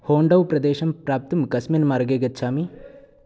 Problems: none marked